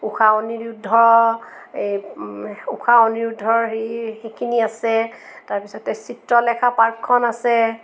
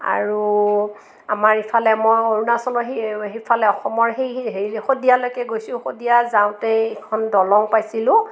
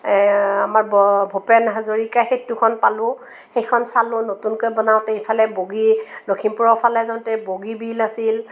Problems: none marked